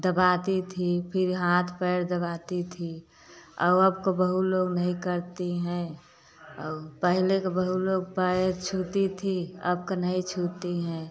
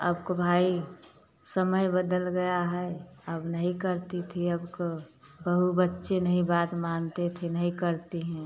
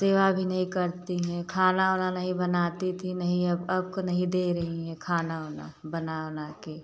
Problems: none marked